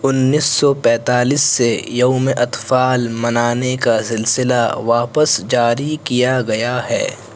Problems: constant background noise